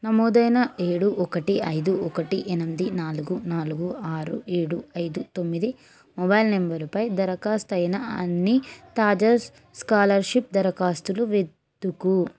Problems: none marked